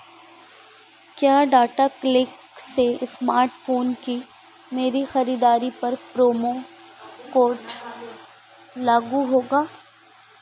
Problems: none marked